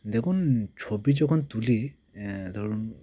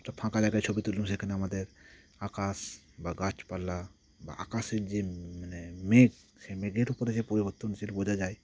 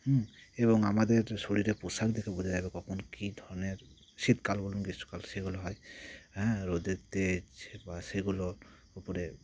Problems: none marked